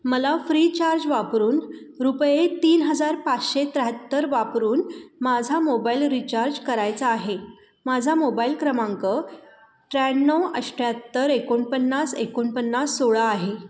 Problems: constant background noise